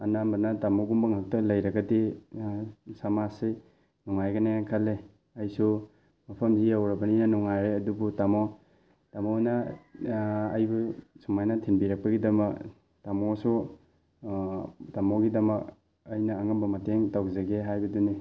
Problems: background sounds at intervals